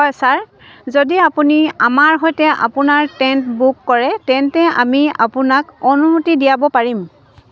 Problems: none marked